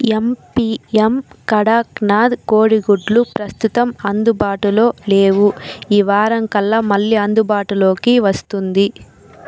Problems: none marked